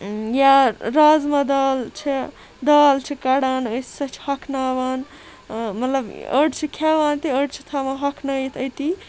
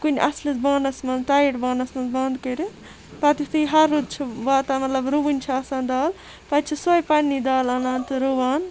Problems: constant background noise